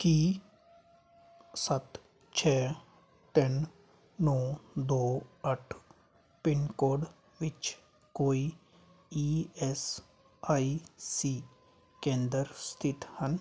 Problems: constant background noise